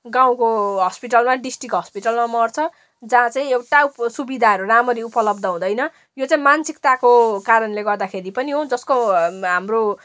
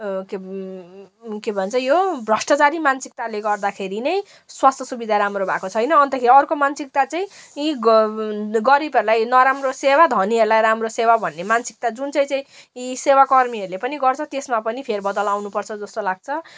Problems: background sounds at intervals